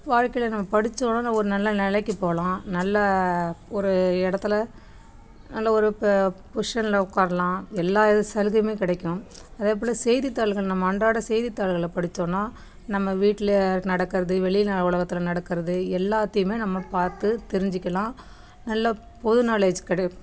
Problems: background sounds at intervals, background conversations at intervals